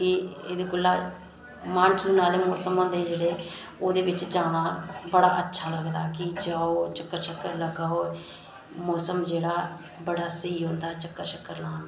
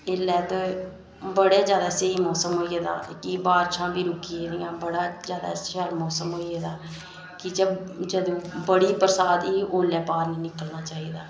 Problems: none marked